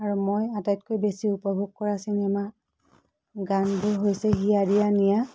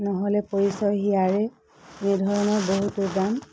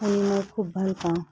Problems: background sounds at intervals